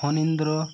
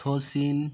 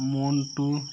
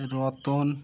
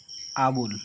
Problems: constant background noise